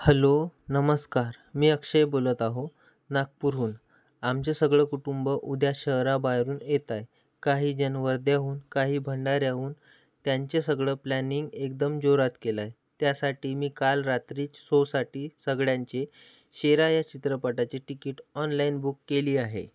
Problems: background sounds at intervals